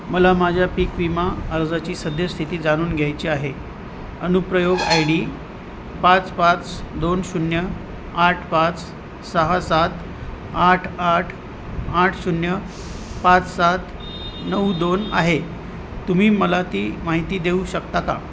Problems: constant background noise, background conversations at intervals